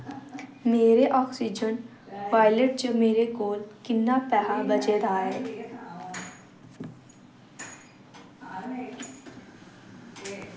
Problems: constant background noise